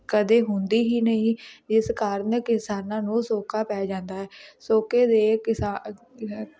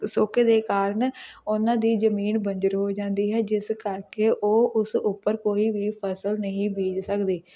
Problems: constant background noise, background conversations at intervals